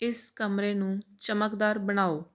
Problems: constant background noise